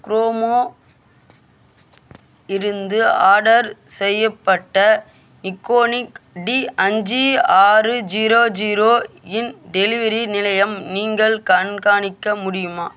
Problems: constant background noise